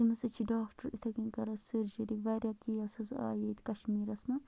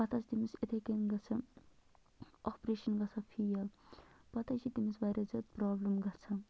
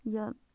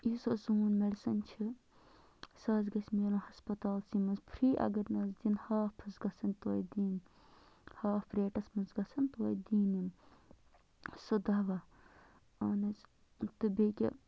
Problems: constant background noise, low volume